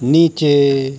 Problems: none marked